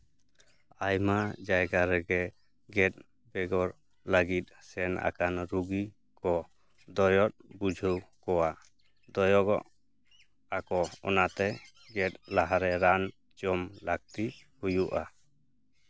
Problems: background sounds at intervals